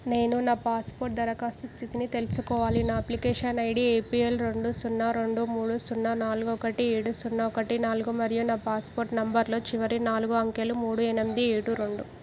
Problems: background sounds at intervals